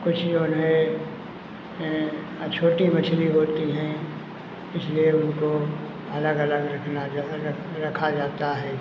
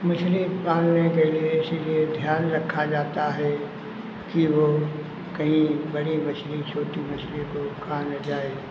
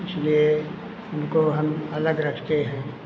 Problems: constant background noise